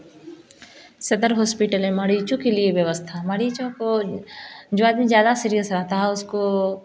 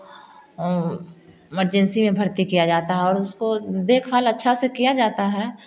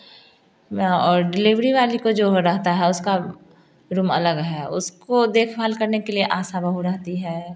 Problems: background conversations at intervals